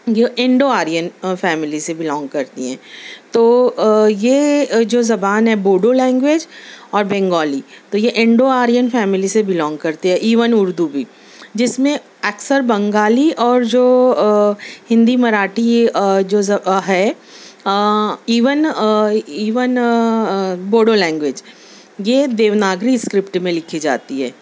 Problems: none marked